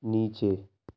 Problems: background sounds at intervals, low volume